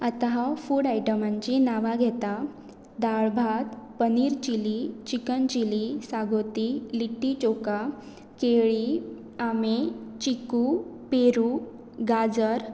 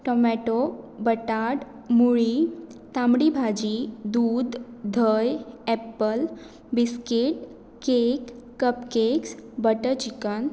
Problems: constant background noise